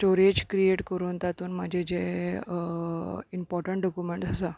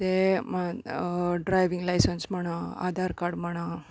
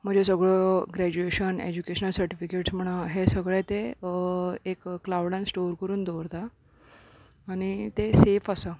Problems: none marked